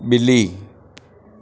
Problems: constant background noise, echo